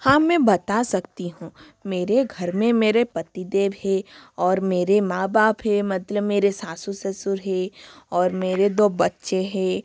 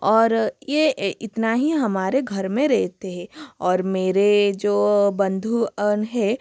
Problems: constant background noise